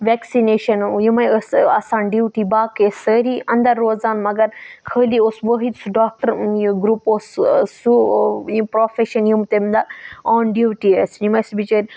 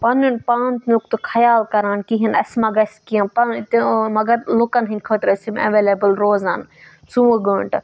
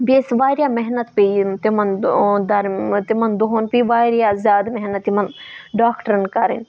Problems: none marked